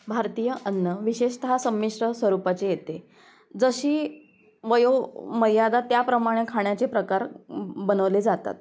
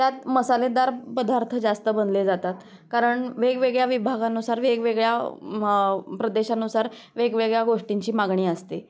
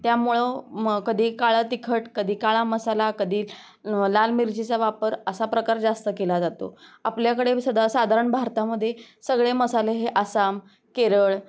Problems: none marked